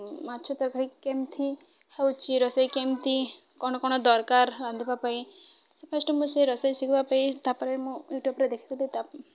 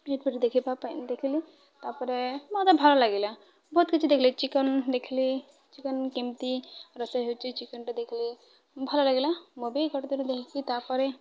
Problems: none marked